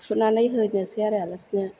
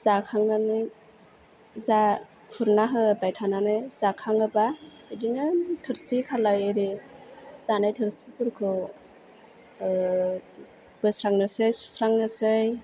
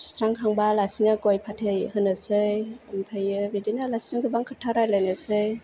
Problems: none marked